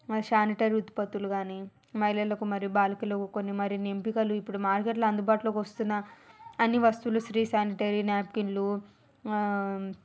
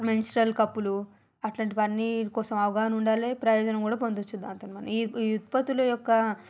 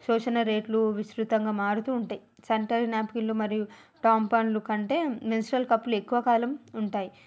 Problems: background sounds at intervals